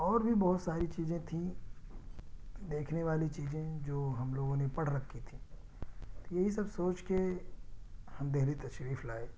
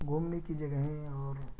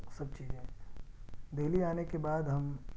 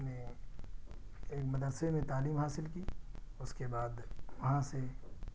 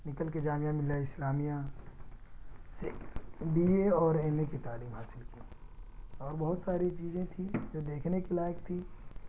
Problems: constant background noise, low volume